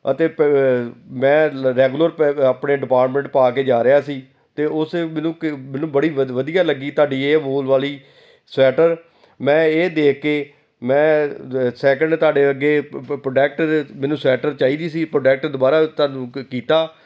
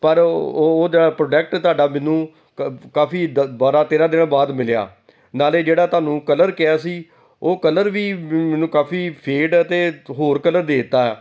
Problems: none marked